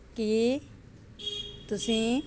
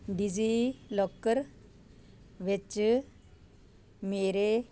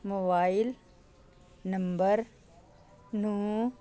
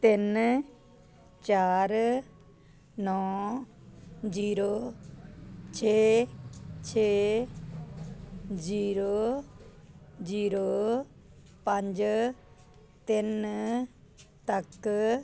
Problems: none marked